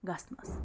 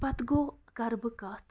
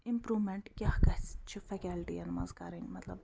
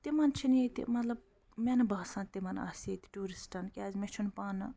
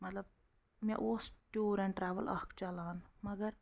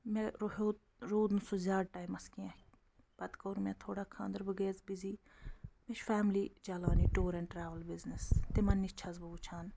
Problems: none marked